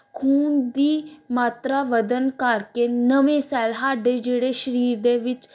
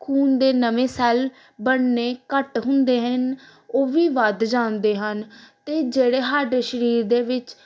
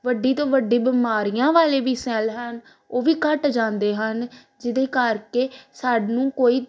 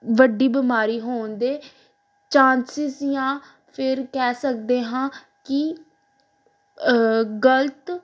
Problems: none marked